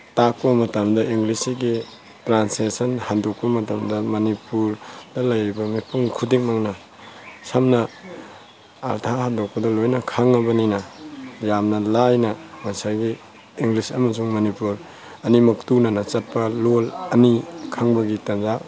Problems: constant background noise